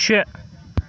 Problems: constant background noise, continuous background conversations